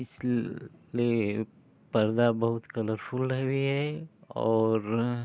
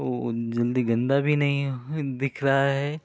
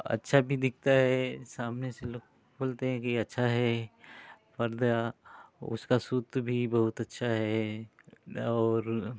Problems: constant background noise